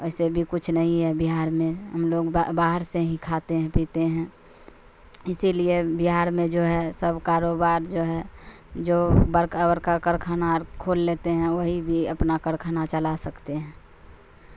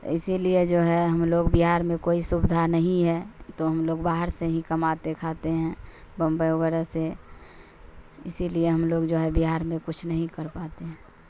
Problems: constant background noise